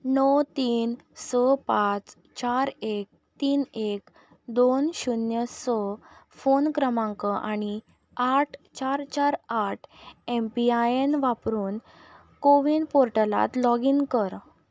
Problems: none marked